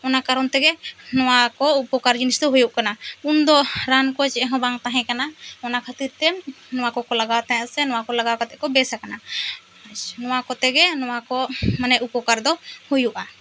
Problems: constant background noise